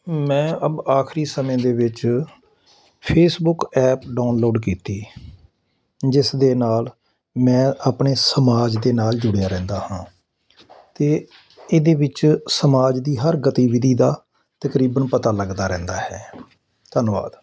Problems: none marked